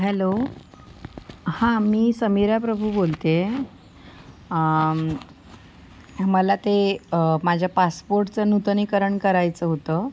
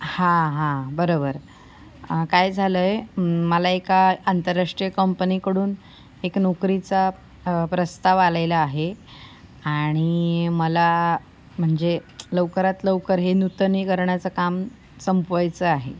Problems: none marked